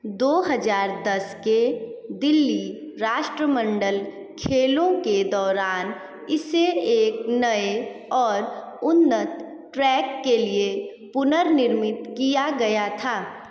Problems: background sounds at intervals, echo